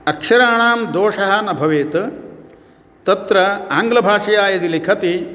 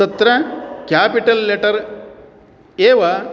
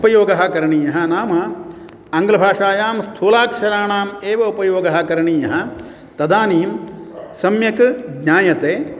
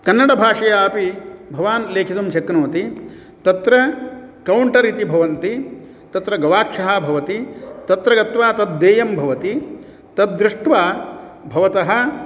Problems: none marked